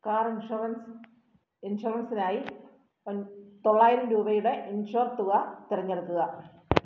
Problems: background sounds at intervals